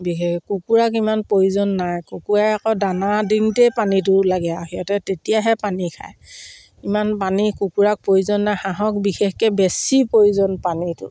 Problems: none marked